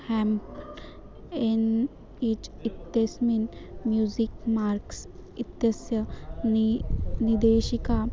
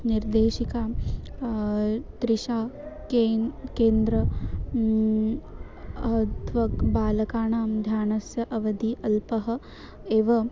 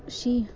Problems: none marked